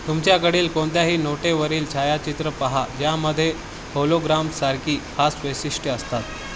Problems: constant background noise